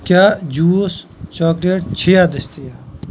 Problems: constant background noise